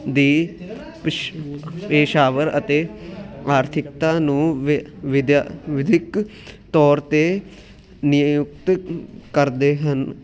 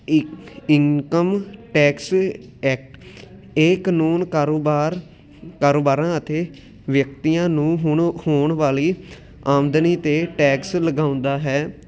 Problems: continuous background conversations